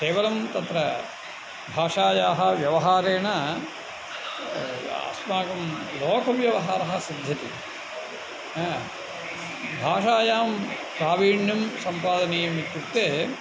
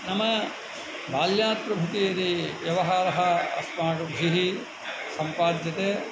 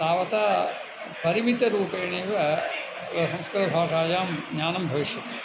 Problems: constant background noise